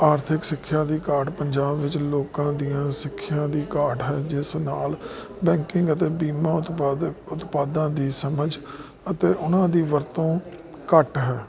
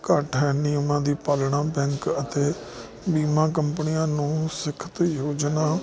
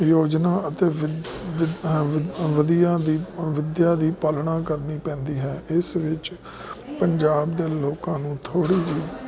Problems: constant background noise